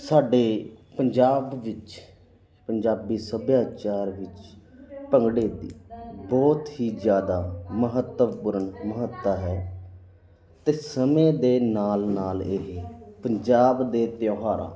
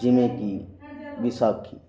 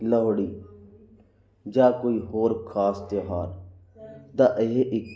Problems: constant background noise